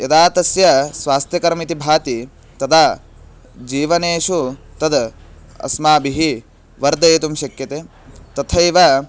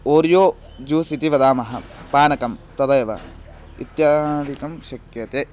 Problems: constant background noise